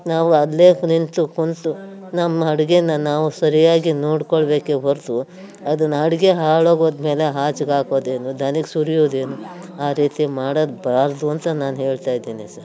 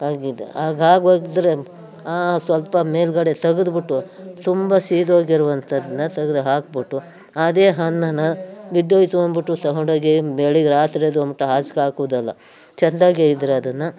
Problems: background sounds at intervals